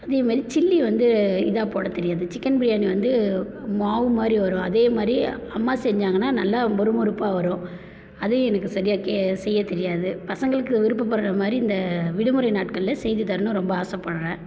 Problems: constant background noise